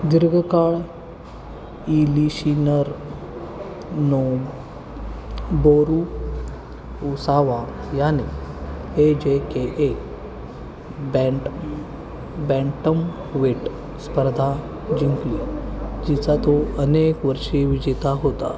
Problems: constant background noise, continuous background conversations